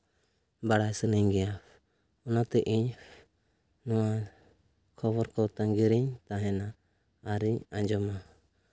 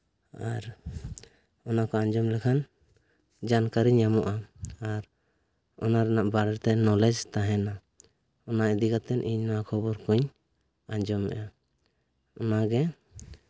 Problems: none marked